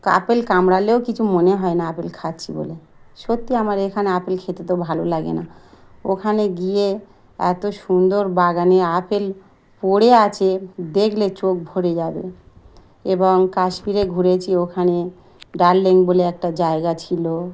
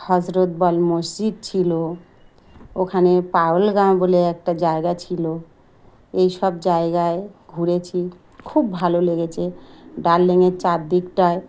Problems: background sounds at intervals